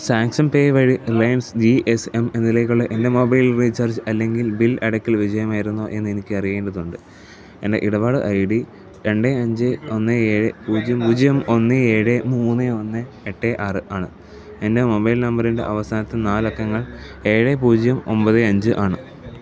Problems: background conversations at intervals, low volume